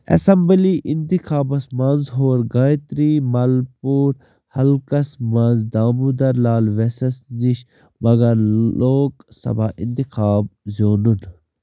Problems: background sounds at intervals